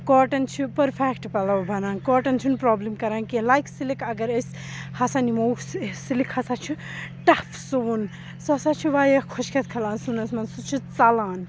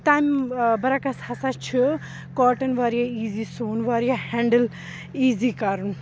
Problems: background sounds at intervals, background conversations at intervals